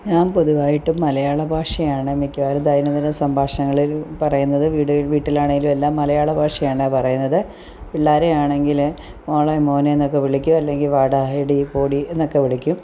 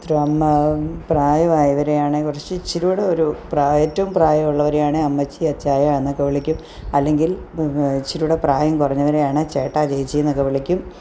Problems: background sounds at intervals